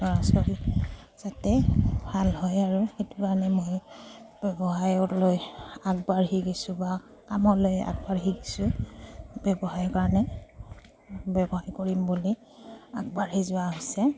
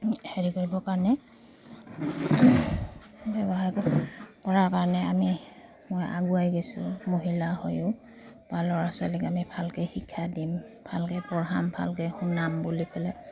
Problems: low volume